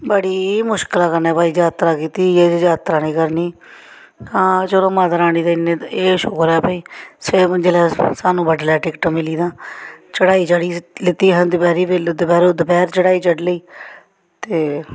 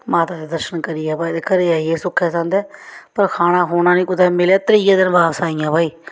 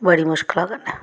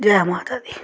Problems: background sounds at intervals